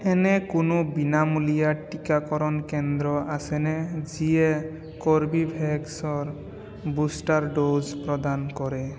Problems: background sounds at intervals, continuous background conversations, echo